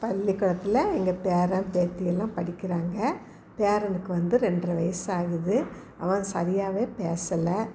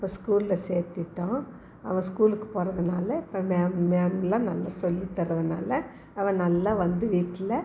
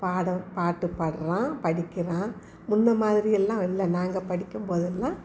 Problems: background conversations at intervals